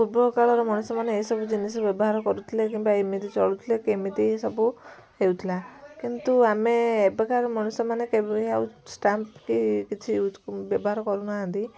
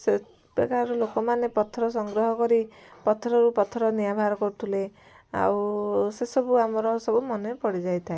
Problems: constant background noise, continuous background conversations